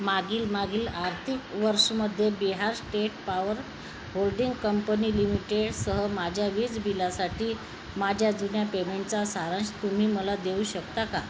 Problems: constant background noise